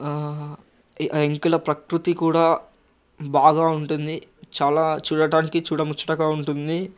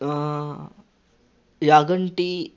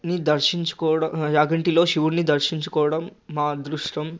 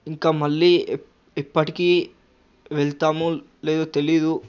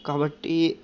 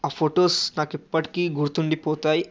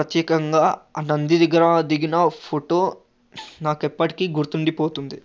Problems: none marked